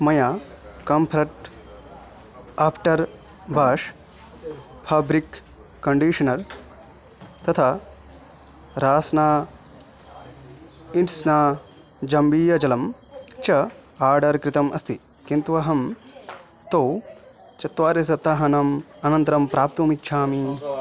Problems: continuous background conversations